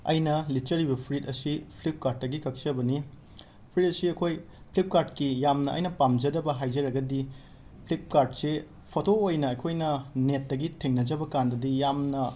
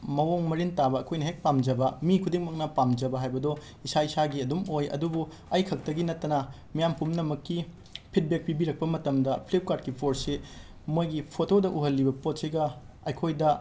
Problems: background sounds at intervals